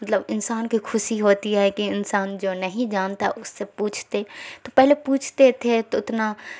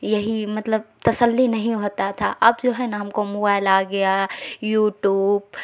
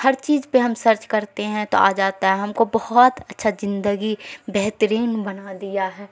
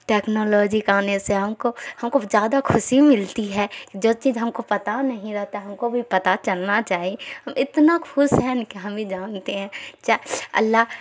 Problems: constant background noise